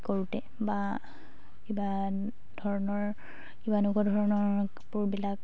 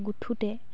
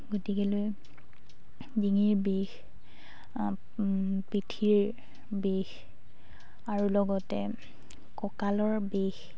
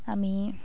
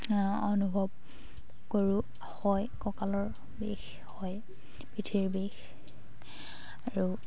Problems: constant background noise, background conversations at intervals